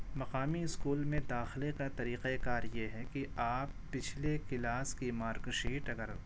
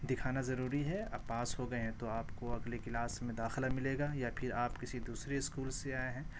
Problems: constant background noise